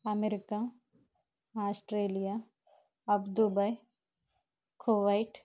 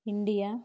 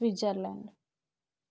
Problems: low volume